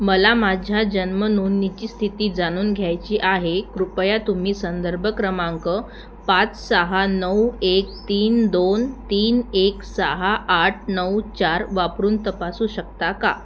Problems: none marked